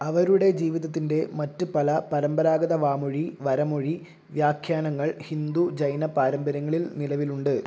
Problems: none marked